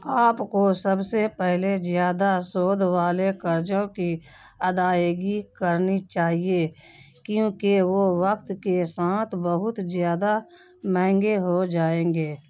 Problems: none marked